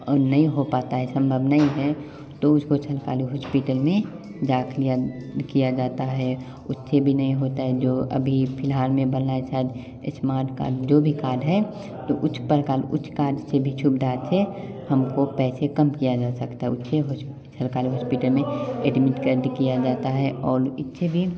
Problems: constant background noise, continuous background conversations